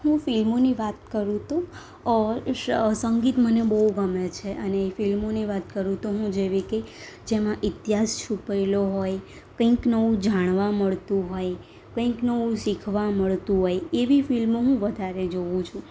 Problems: none marked